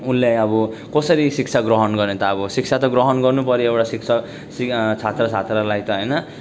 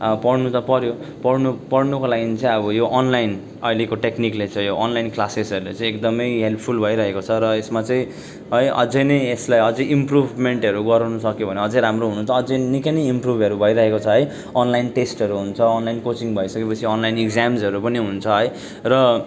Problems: constant background noise